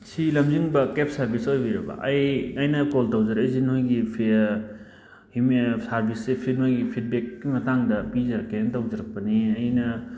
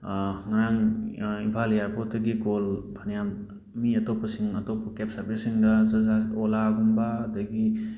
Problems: background sounds at intervals